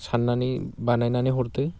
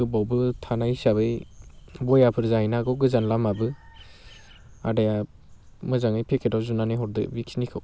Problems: constant background noise